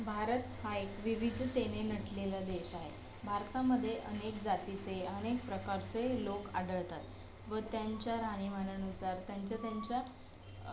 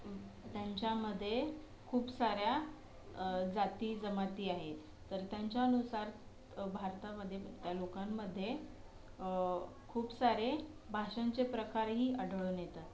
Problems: background sounds at intervals, low volume